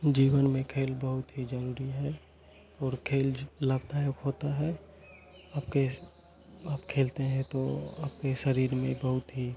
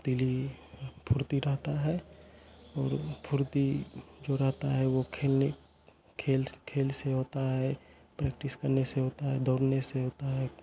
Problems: none marked